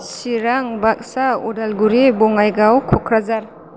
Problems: constant background noise